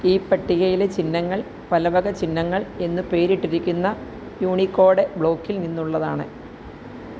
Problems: constant background noise